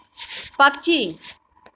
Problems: none marked